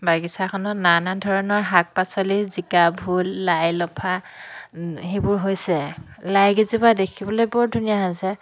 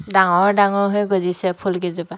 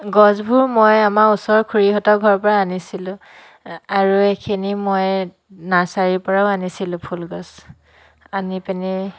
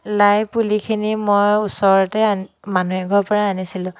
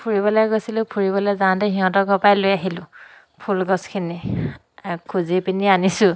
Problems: none marked